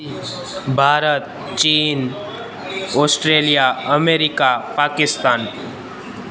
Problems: constant background noise, echo